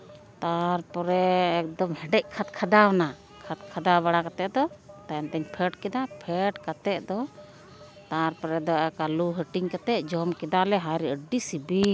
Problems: constant background noise